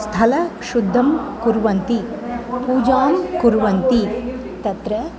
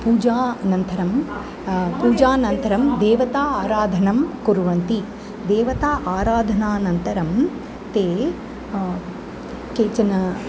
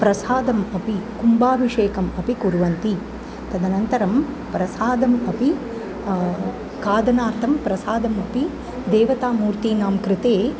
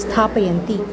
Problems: constant background noise, continuous background conversations